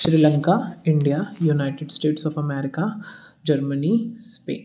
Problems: none marked